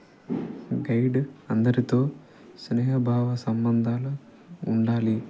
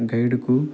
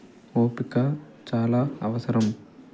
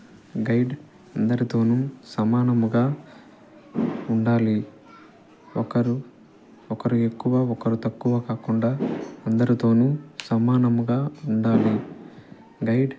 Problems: constant background noise, low volume